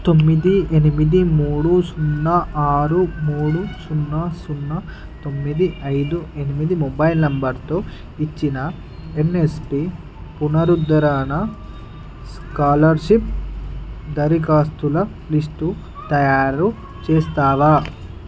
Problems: background sounds at intervals, background conversations at intervals